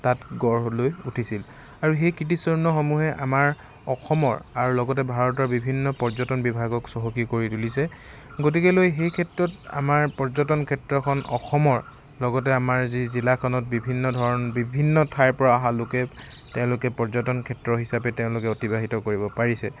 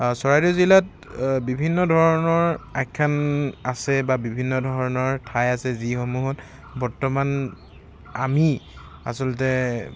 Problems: constant background noise, background conversations at intervals